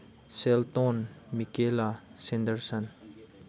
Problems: none marked